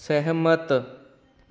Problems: none marked